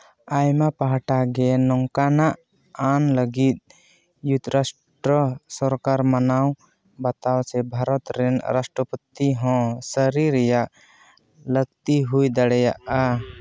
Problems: background sounds at intervals